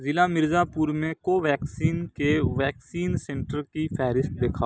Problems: none marked